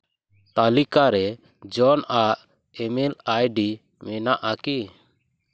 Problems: none marked